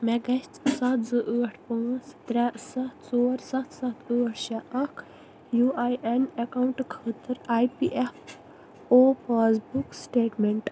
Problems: constant background noise